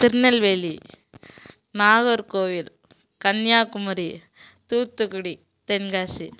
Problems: constant background noise